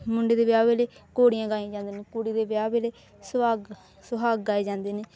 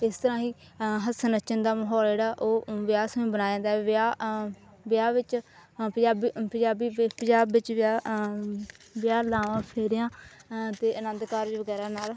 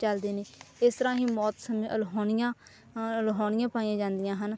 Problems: none marked